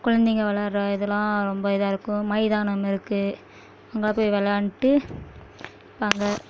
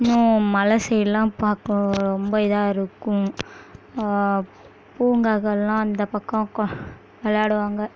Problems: background sounds at intervals